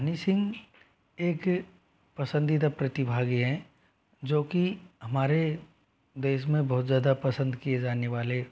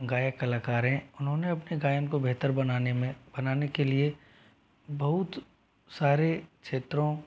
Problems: background sounds at intervals